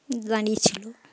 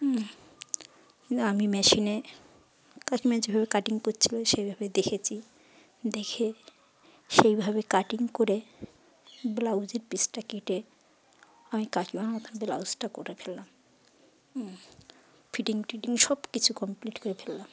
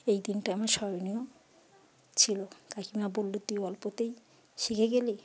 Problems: background sounds at intervals